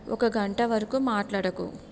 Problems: none marked